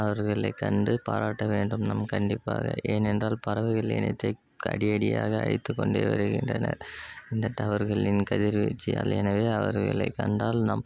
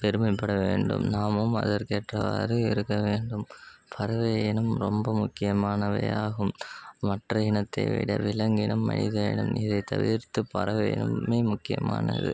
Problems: constant background noise